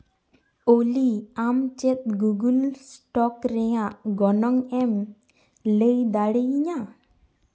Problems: echo